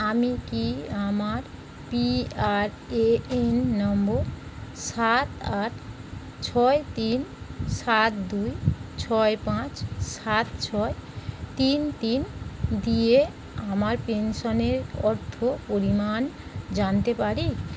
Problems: constant background noise